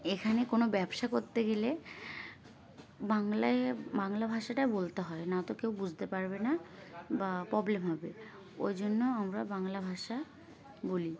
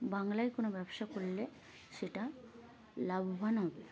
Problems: constant background noise, continuous background conversations